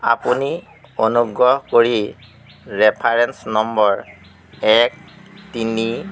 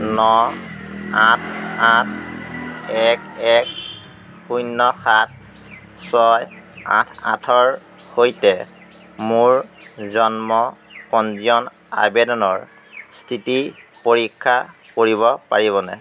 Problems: constant background noise